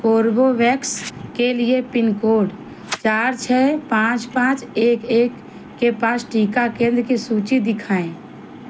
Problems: none marked